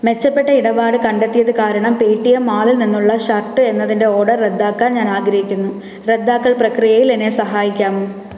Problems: background sounds at intervals